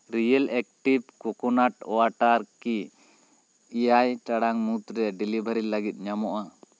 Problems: constant background noise